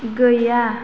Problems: constant background noise